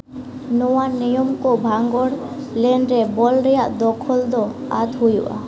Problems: constant background noise, low volume